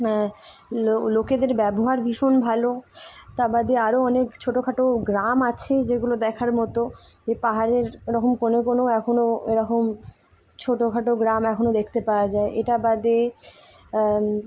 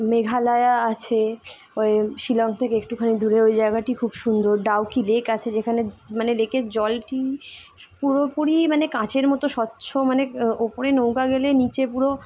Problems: constant background noise